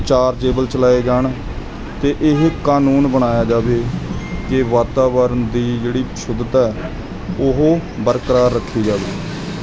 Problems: constant background noise